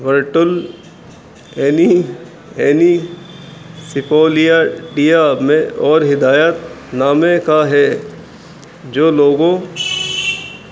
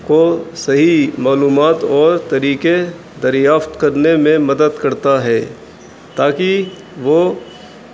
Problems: constant background noise